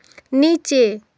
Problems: none marked